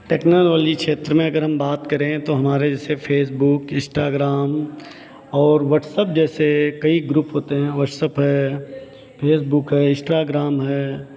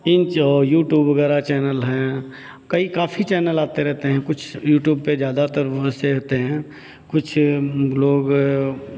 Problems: none marked